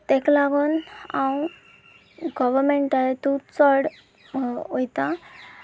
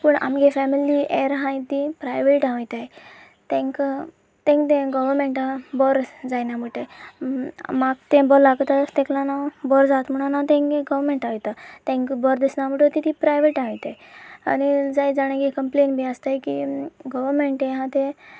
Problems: constant background noise, background conversations at intervals